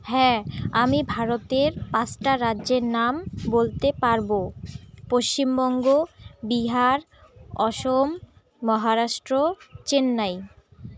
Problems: none marked